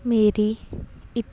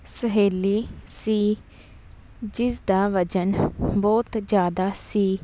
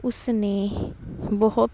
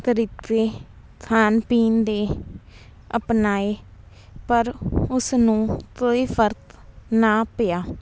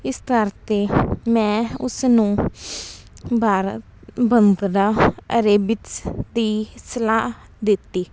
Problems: background sounds at intervals